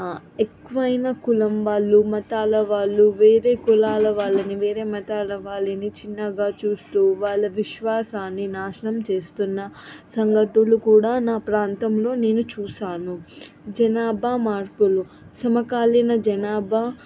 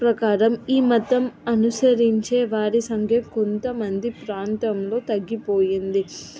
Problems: background conversations at intervals